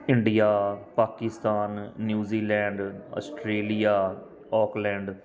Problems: background sounds at intervals